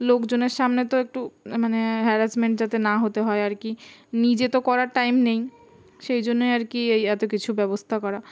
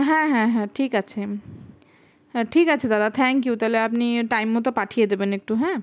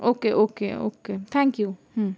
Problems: none marked